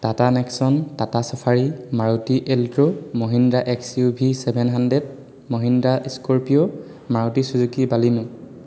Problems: constant background noise, echo